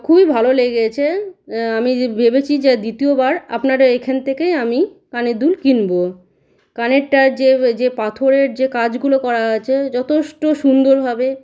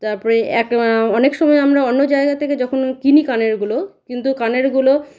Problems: none marked